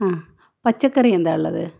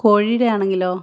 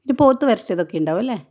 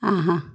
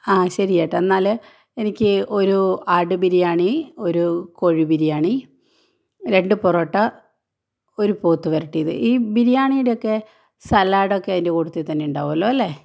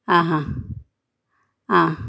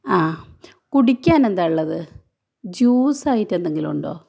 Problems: none marked